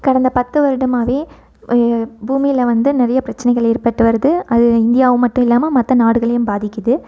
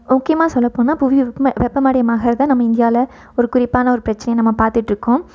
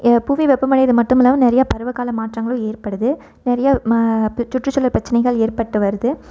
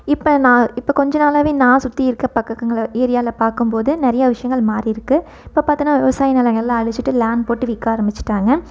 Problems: none marked